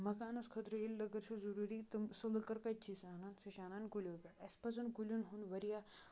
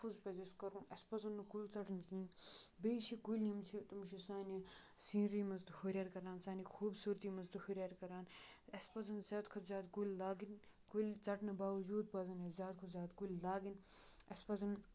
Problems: background sounds at intervals